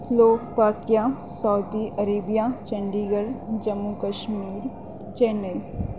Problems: constant background noise